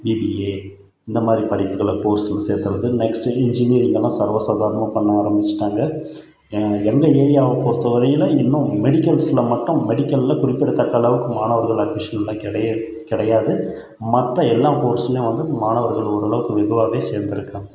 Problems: none marked